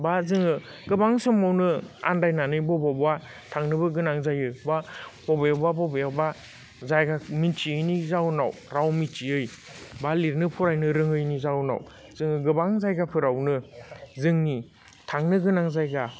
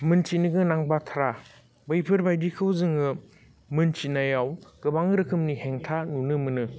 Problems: constant background noise